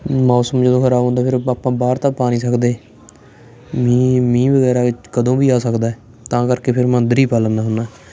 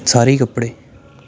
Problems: constant background noise